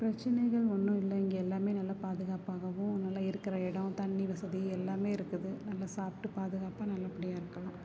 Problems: low volume